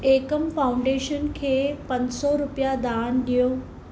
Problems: constant background noise